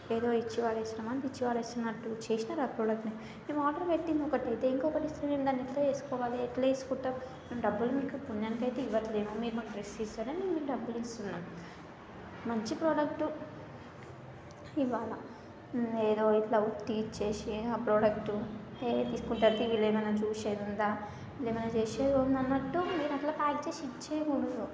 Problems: constant background noise, continuous background conversations